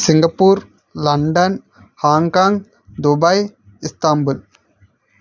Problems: none marked